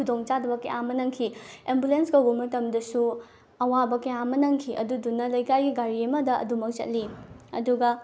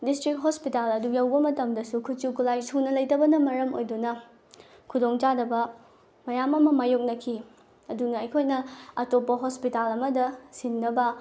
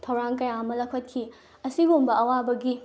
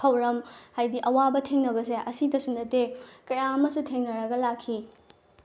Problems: none marked